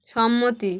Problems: none marked